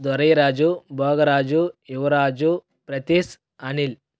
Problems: none marked